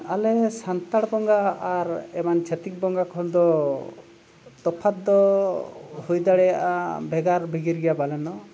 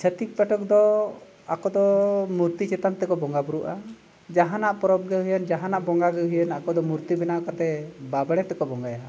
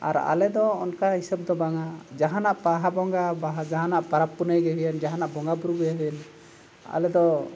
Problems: constant background noise, background conversations at intervals